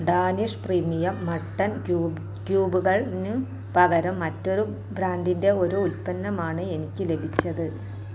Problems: low volume